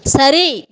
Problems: constant background noise, background conversations at intervals